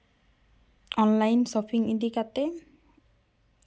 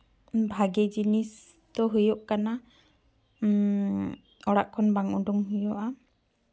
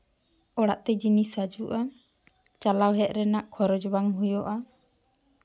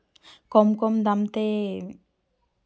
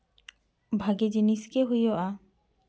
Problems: none marked